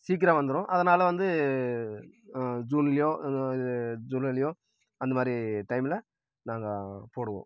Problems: none marked